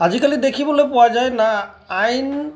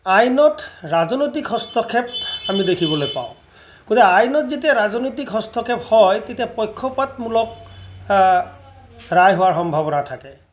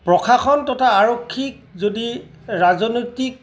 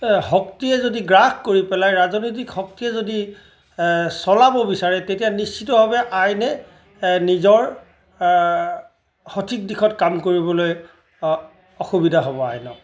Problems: background sounds at intervals